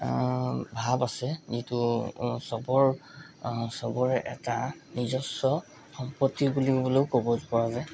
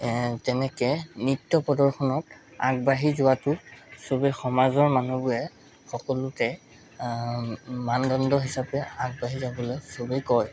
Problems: background sounds at intervals